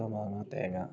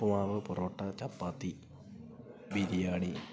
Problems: low volume